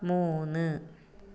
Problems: low volume